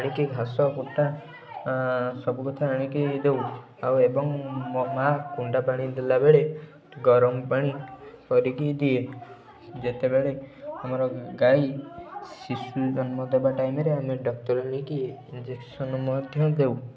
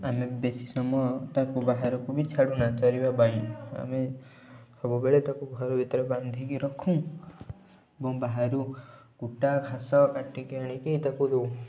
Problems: continuous background conversations